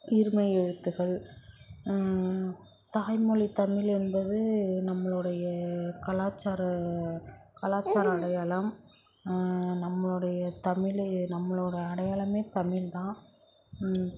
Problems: constant background noise